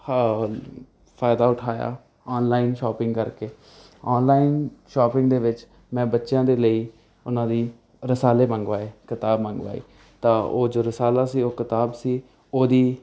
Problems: none marked